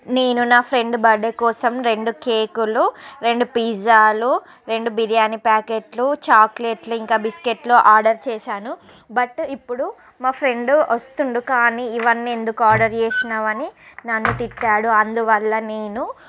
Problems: background conversations at intervals